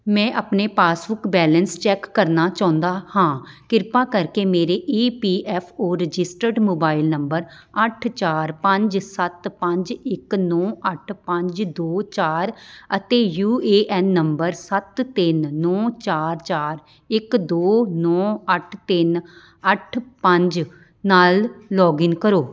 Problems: none marked